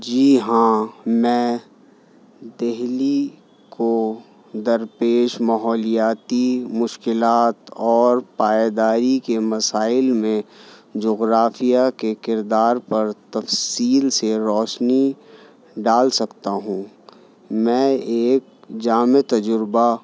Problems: none marked